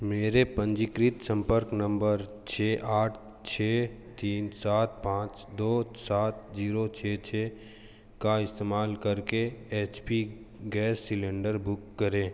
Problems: none marked